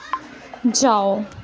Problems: constant background noise